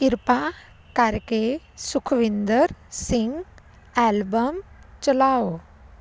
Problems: constant background noise